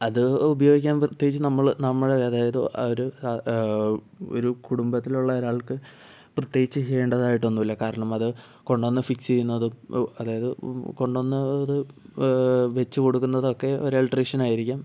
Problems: none marked